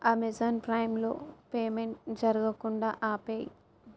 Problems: none marked